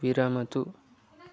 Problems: background conversations at intervals